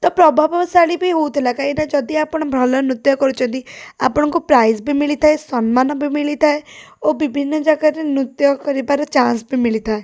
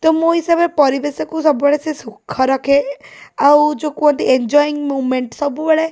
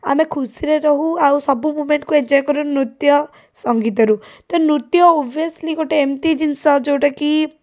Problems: none marked